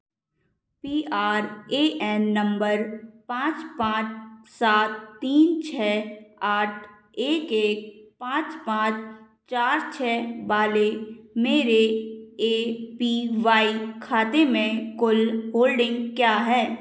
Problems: none marked